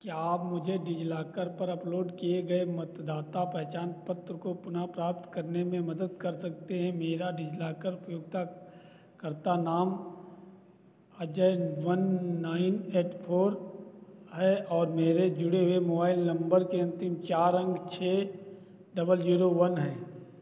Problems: none marked